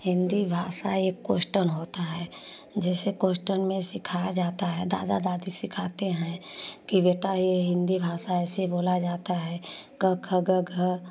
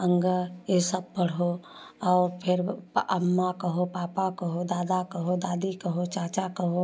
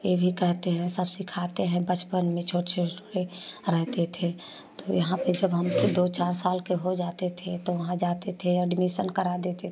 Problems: none marked